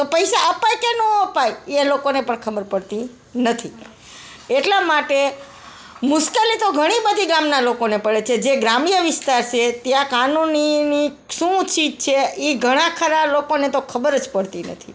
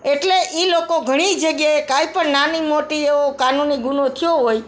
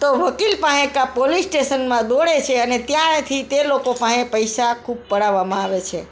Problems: background sounds at intervals, background conversations at intervals